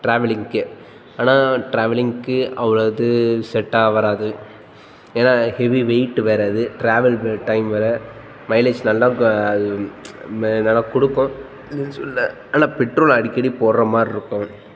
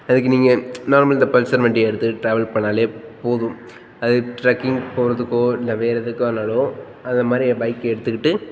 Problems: background sounds at intervals, background conversations at intervals